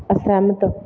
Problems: constant background noise